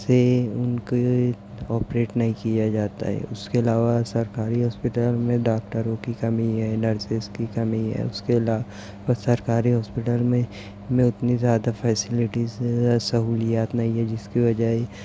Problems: none marked